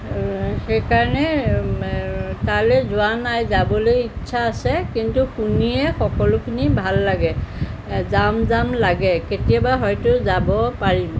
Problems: constant background noise